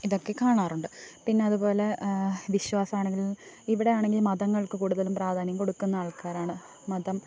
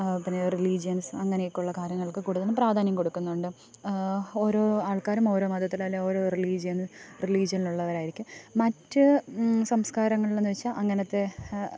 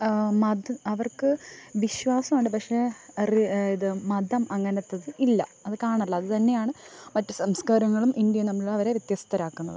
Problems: none marked